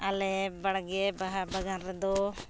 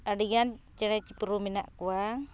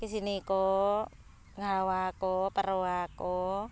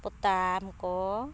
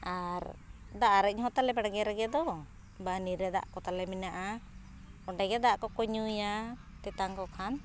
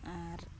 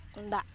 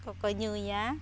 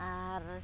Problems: background sounds at intervals